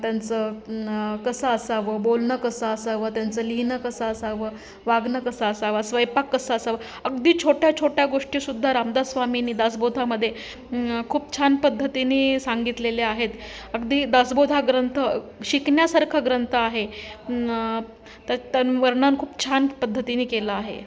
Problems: constant background noise, background conversations at intervals